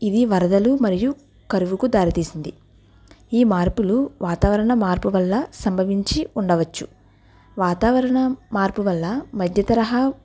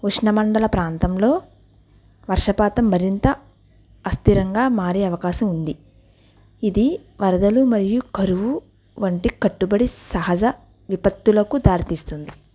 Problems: none marked